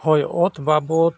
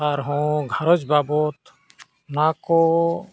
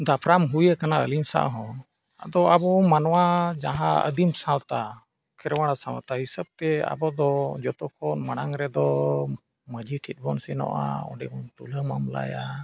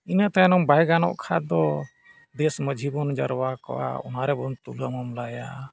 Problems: none marked